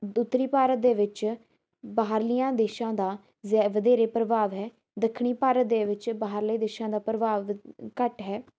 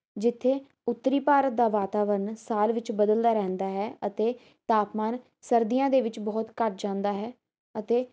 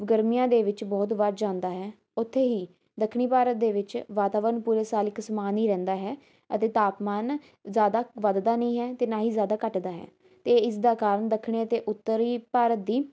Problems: background sounds at intervals